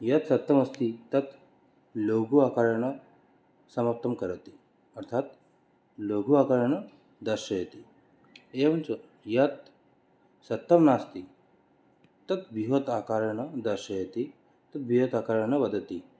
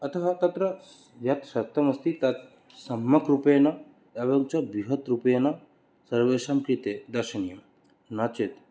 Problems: none marked